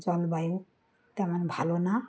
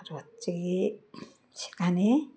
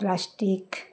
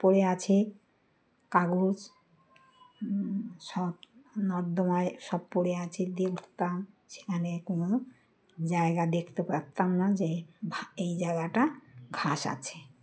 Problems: constant background noise, continuous background conversations